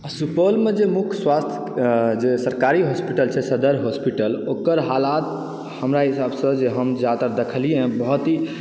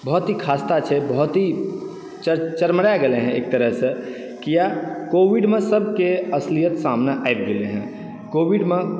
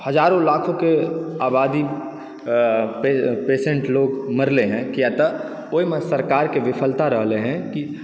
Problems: background sounds at intervals, background conversations at intervals